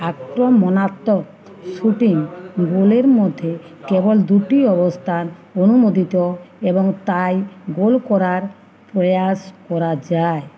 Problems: continuous background conversations